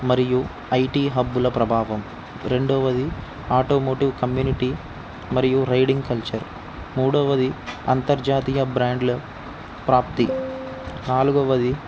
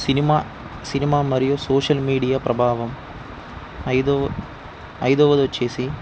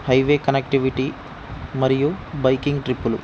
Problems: constant background noise